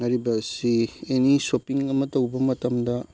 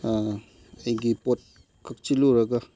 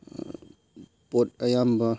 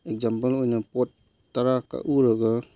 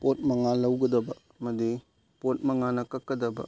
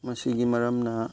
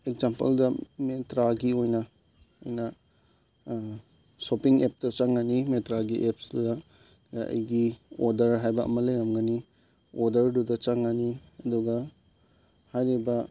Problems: background sounds at intervals